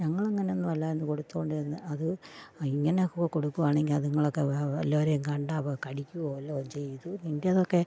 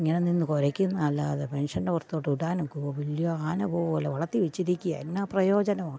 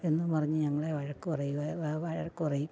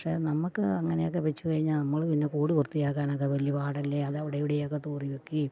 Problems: low volume